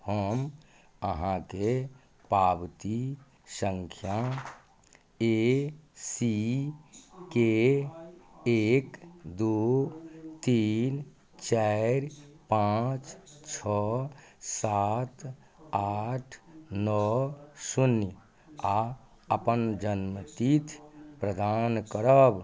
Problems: none marked